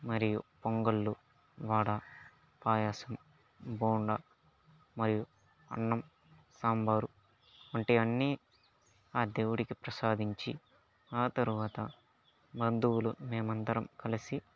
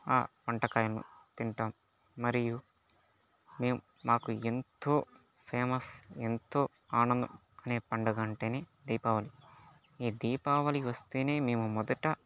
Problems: background sounds at intervals